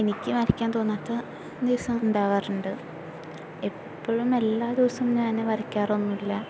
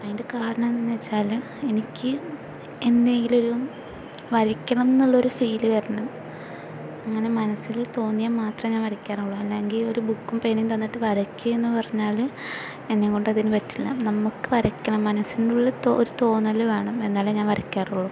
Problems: constant background noise